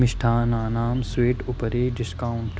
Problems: constant background noise